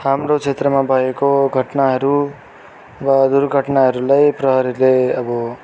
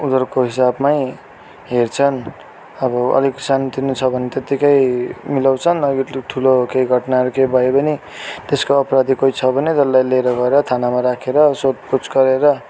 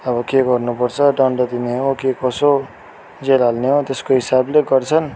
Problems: background sounds at intervals